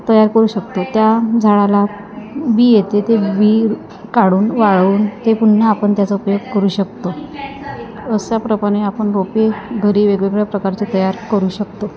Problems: constant background noise, continuous background conversations